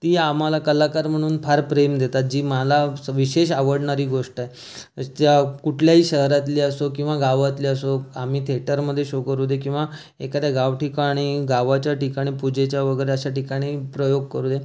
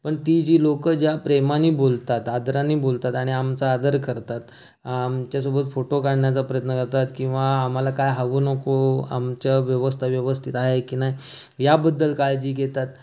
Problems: background sounds at intervals